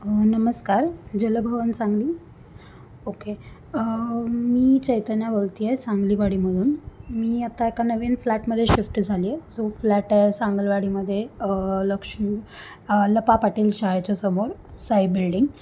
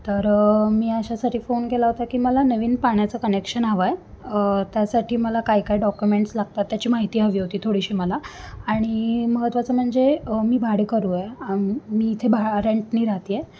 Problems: constant background noise